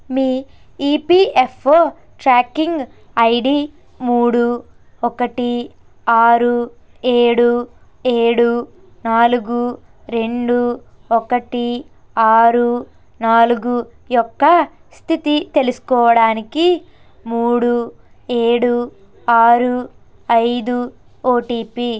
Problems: constant background noise, background conversations at intervals